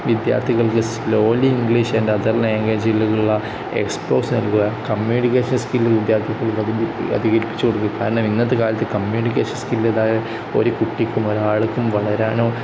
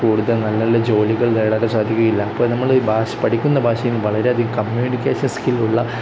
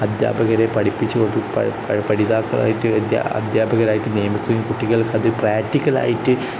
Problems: constant background noise